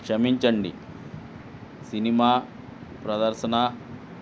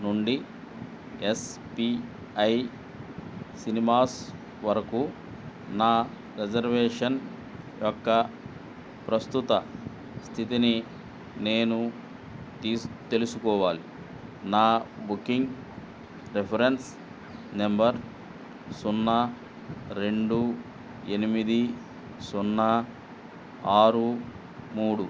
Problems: none marked